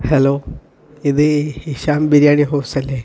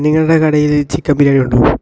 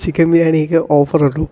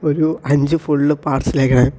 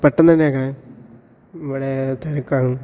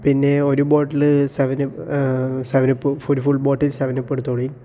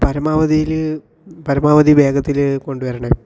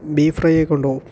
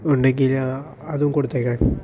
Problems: background conversations at intervals